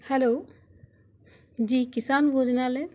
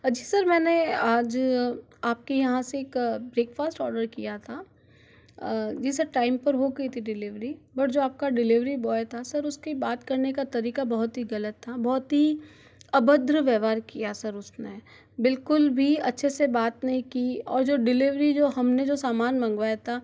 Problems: background sounds at intervals